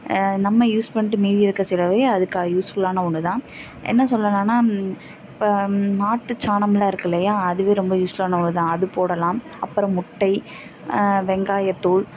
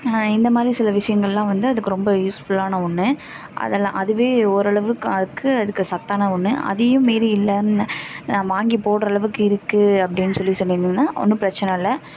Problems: constant background noise, background conversations at intervals